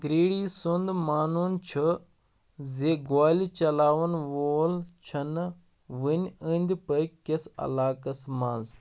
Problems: none marked